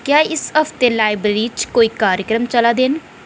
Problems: echo